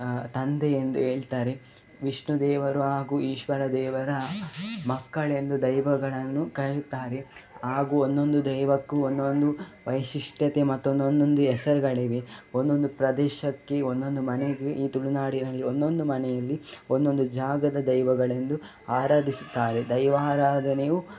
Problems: background sounds at intervals